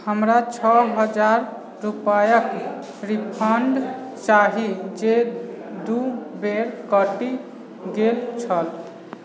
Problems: background sounds at intervals, background conversations at intervals